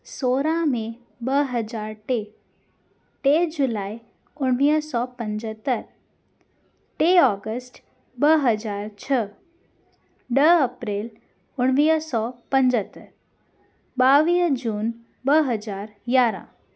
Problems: constant background noise